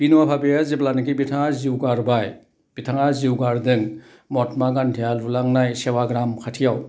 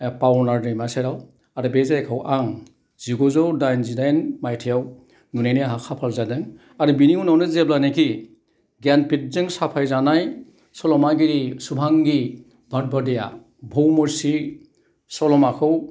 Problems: none marked